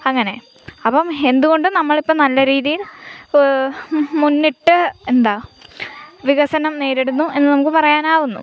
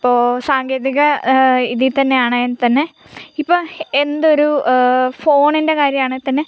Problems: background sounds at intervals